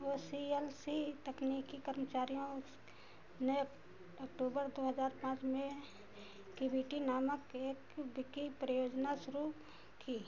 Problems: constant background noise, low volume